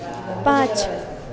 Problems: continuous background conversations